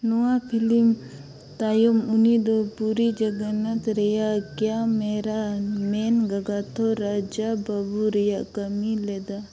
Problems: background sounds at intervals